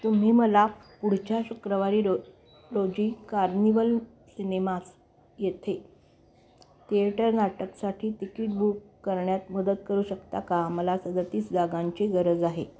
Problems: constant background noise, continuous background conversations